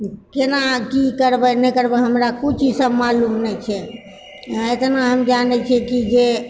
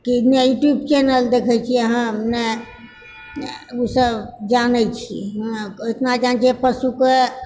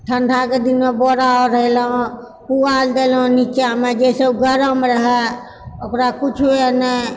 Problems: none marked